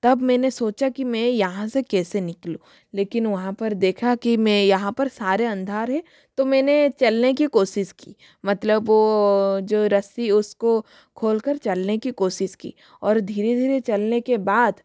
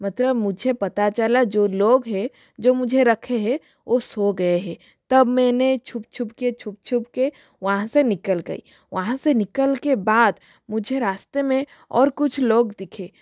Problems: none marked